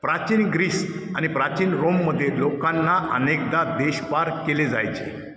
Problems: none marked